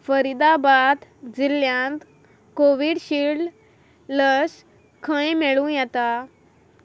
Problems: none marked